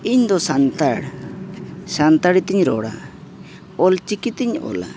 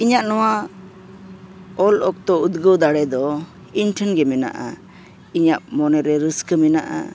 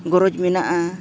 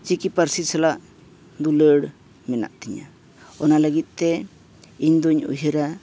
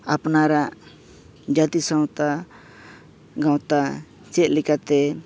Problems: background sounds at intervals